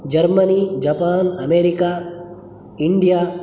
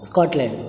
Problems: none marked